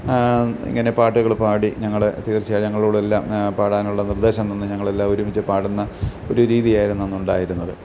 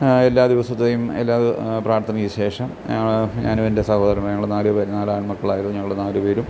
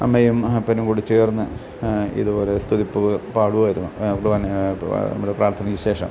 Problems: none marked